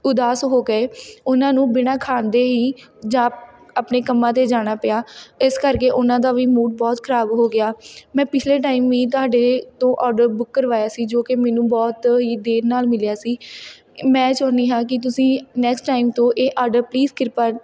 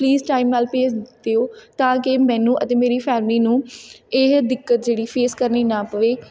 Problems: background conversations at intervals